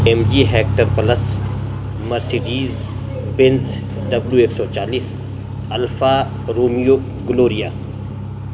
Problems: constant background noise